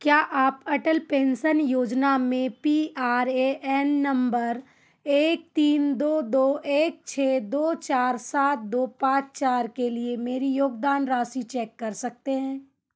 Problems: none marked